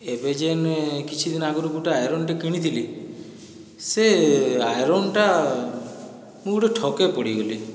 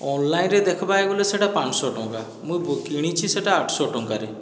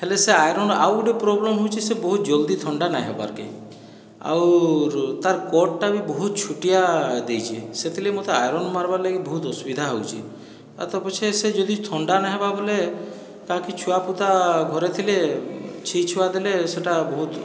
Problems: background sounds at intervals, background conversations at intervals